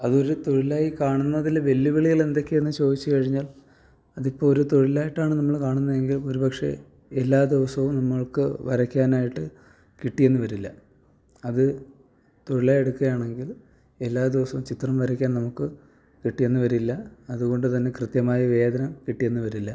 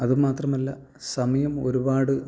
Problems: none marked